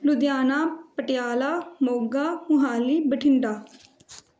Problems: background conversations at intervals